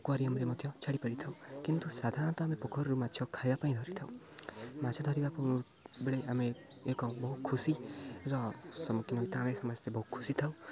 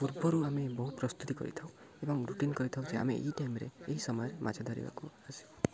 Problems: constant background noise, continuous background conversations